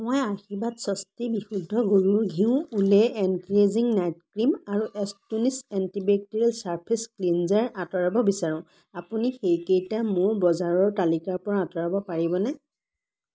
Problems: none marked